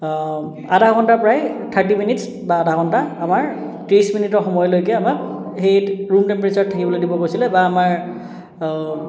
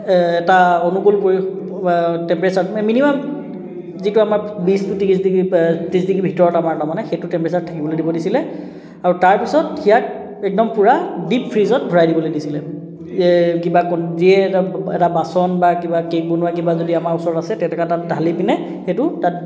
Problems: continuous background conversations